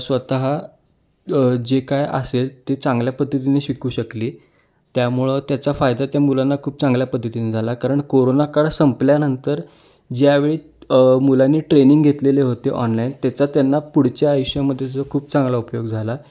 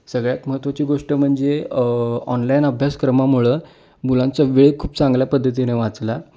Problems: background sounds at intervals